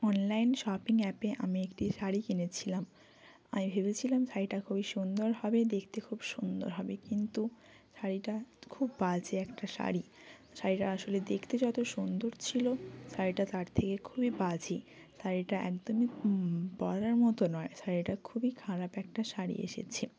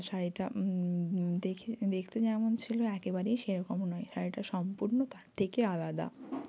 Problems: none marked